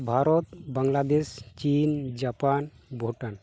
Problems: none marked